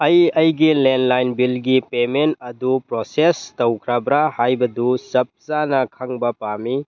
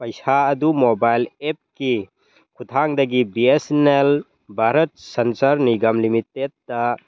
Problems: background sounds at intervals